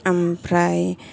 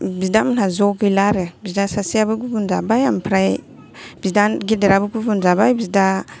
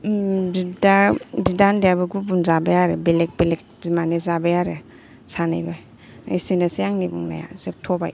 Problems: background conversations at intervals